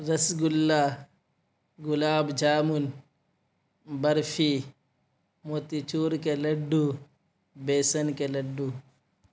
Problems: none marked